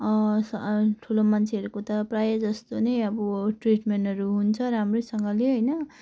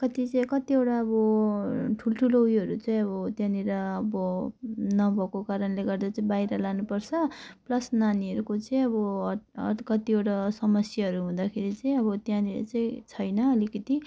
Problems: none marked